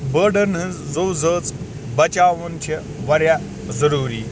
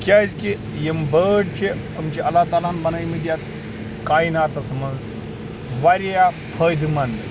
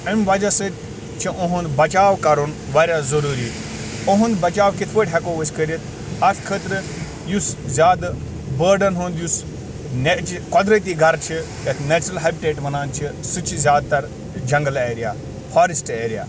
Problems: constant background noise